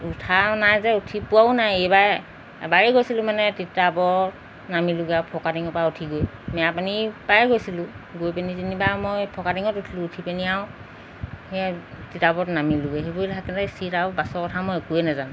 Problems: none marked